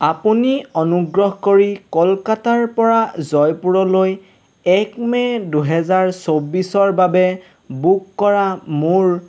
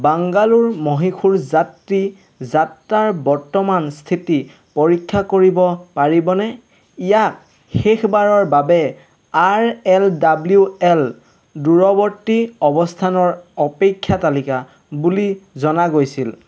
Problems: constant background noise